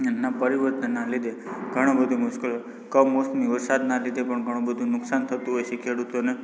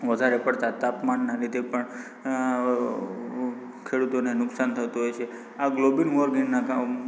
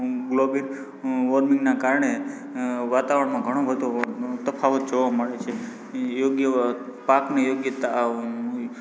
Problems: background conversations at intervals